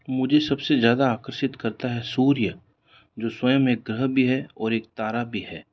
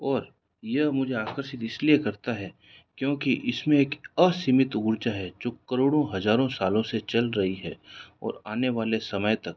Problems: none marked